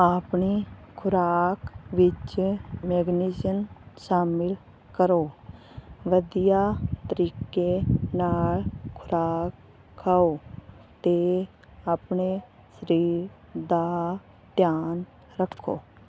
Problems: none marked